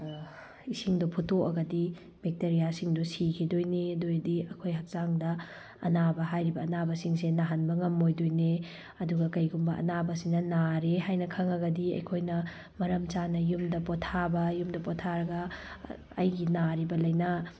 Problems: background sounds at intervals